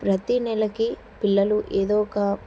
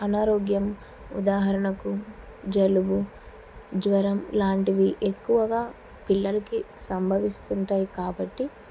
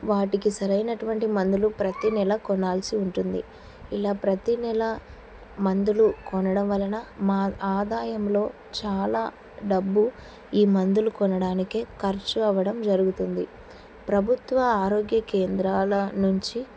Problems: none marked